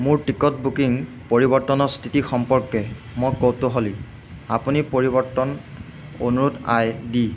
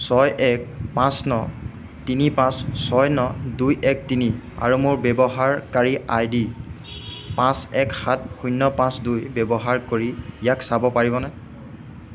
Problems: none marked